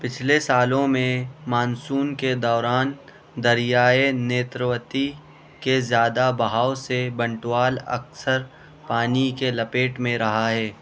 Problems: constant background noise